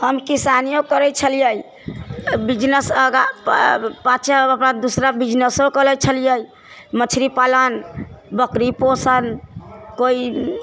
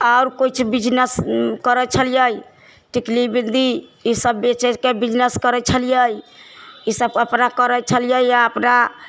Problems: low volume